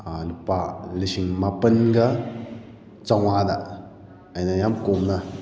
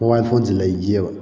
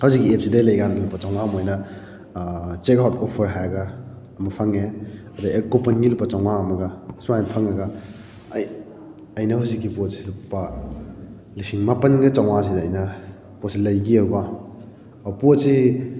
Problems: background sounds at intervals